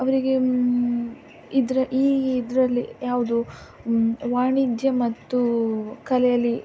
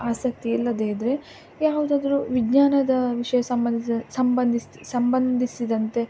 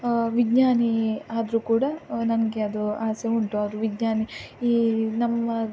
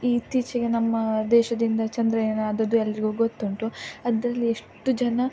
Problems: none marked